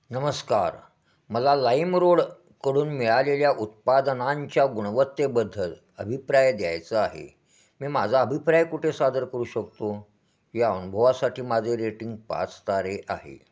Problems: constant background noise, echo